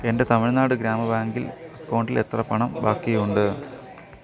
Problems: background sounds at intervals